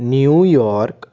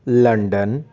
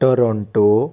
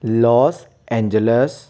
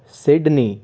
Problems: background conversations at intervals